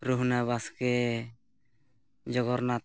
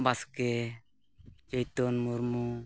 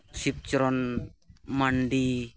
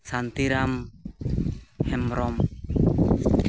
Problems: none marked